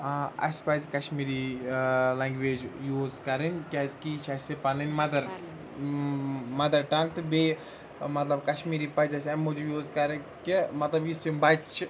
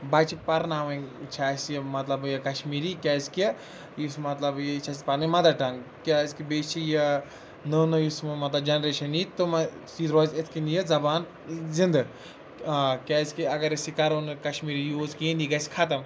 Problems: background conversations at intervals